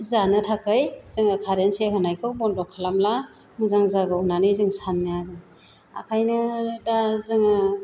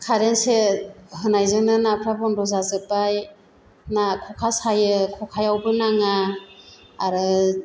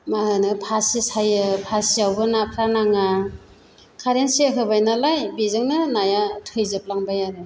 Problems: none marked